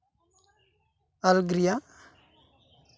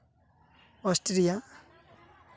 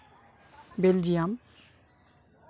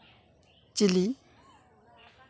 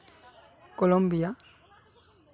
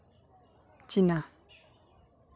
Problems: background conversations at intervals